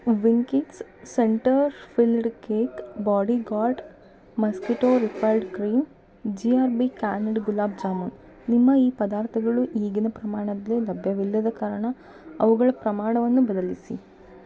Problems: background sounds at intervals